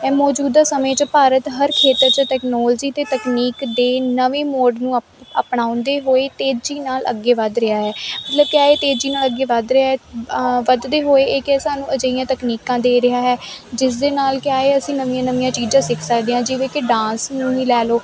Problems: constant background noise